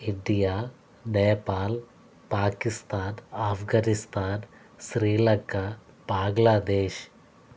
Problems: constant background noise